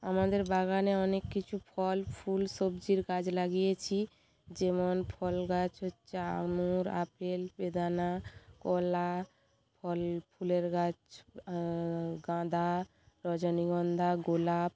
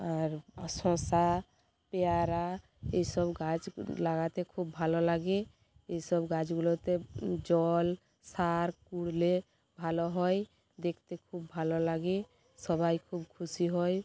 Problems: none marked